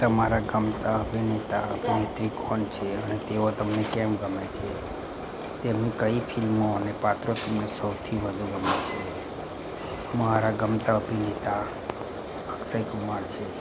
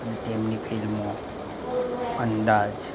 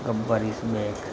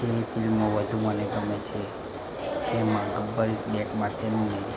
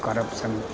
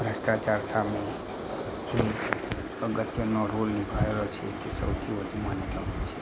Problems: constant background noise